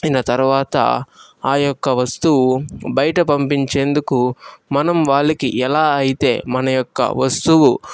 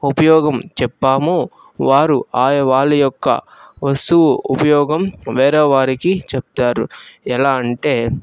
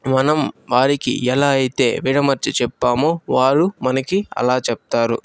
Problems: background sounds at intervals, background conversations at intervals